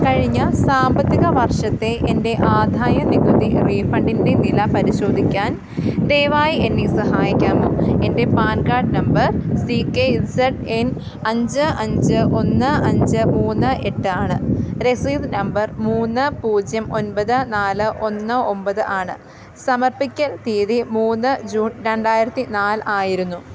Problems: constant background noise